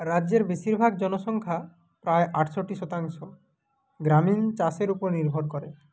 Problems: none marked